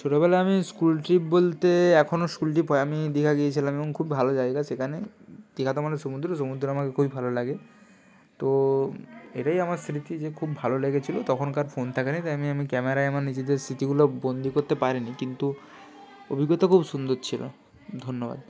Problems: background conversations at intervals